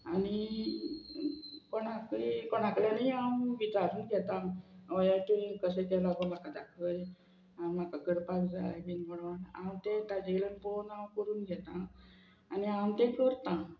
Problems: none marked